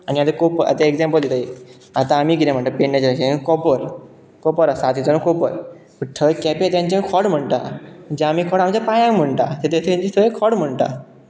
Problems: constant background noise